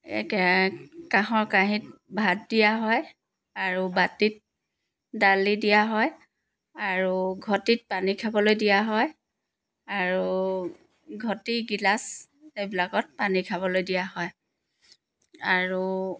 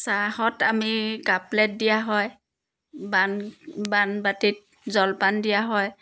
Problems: background sounds at intervals